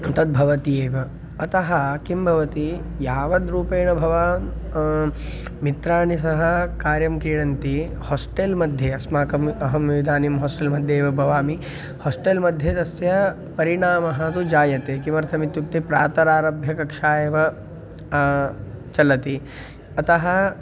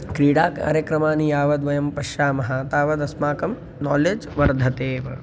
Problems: constant background noise